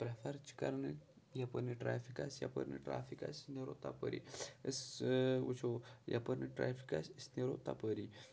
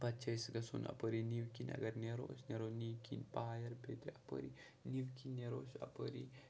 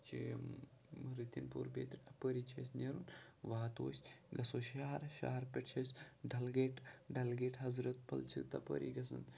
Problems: background sounds at intervals, low volume